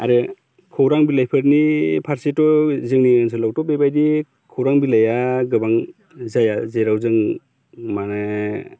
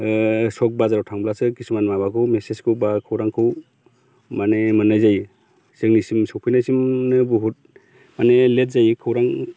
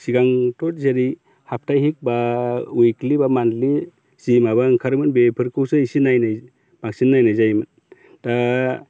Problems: none marked